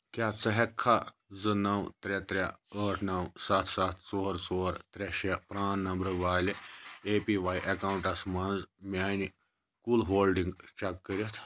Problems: none marked